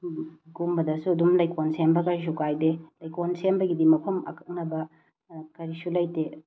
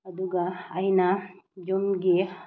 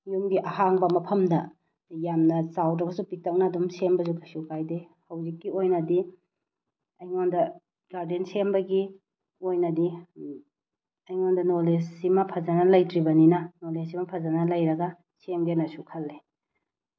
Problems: none marked